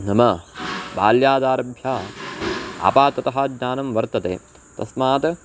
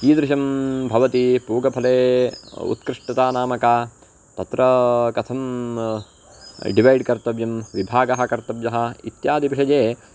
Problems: none marked